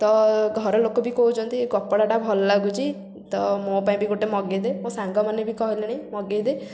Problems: constant background noise